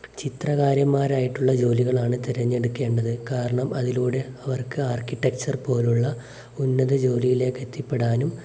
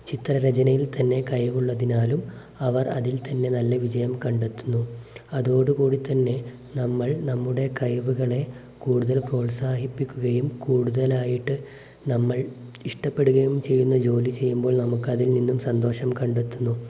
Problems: none marked